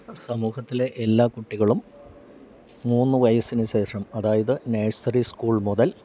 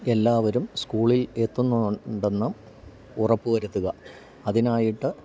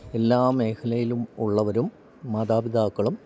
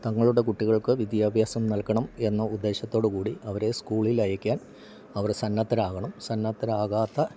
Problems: low volume